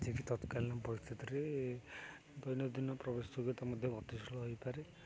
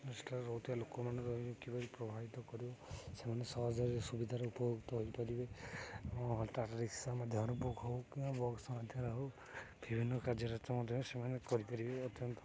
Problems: none marked